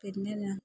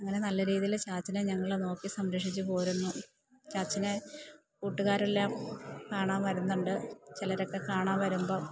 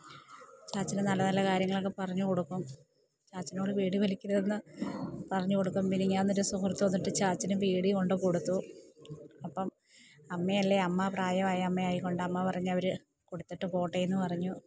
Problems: none marked